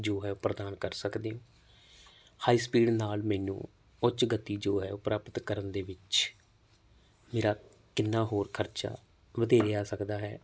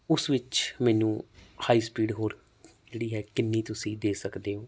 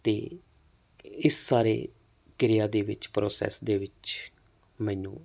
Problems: constant background noise